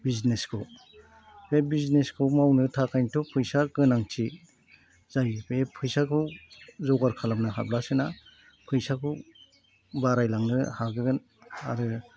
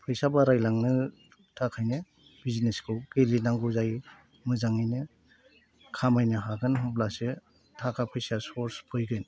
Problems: none marked